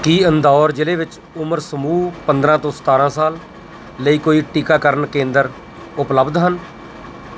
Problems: constant background noise